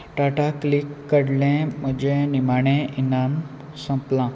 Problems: constant background noise